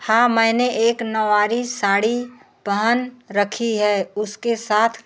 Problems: background sounds at intervals